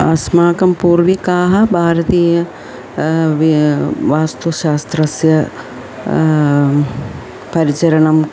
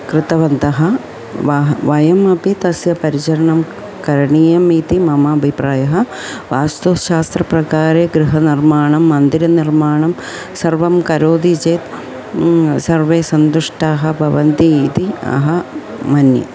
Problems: constant background noise